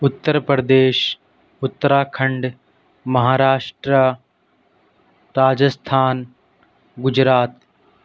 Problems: constant background noise